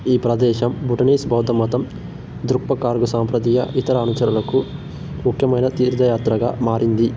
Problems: none marked